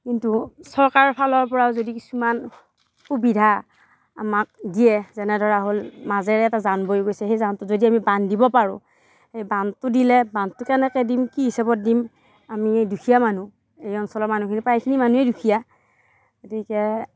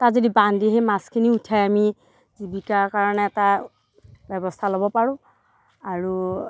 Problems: constant background noise, background conversations at intervals